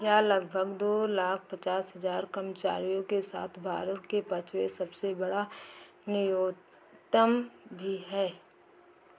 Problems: low volume